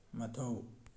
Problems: low volume